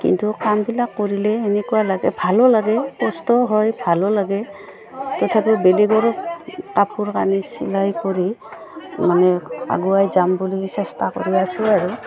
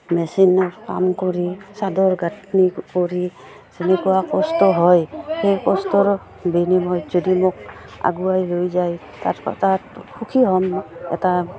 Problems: background sounds at intervals